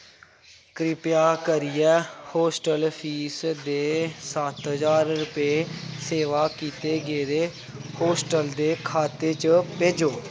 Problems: constant background noise